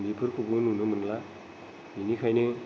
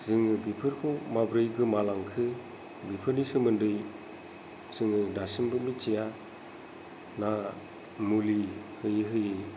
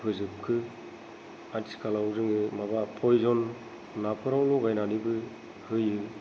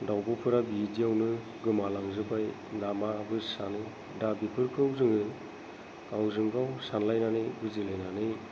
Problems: none marked